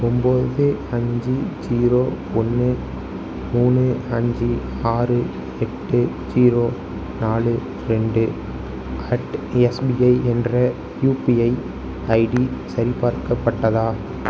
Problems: none marked